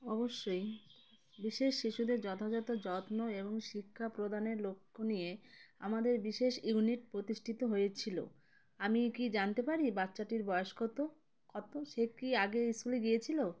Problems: none marked